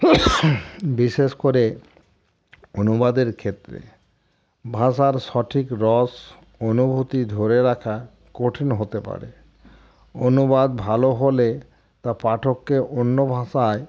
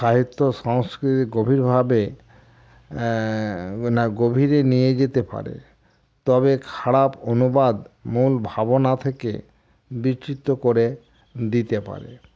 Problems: constant background noise